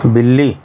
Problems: constant background noise